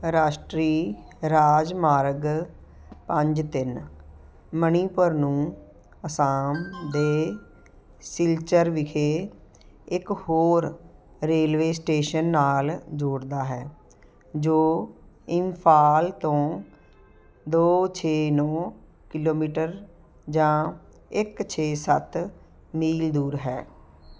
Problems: none marked